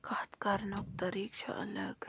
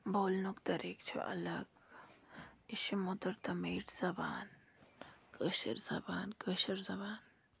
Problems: low volume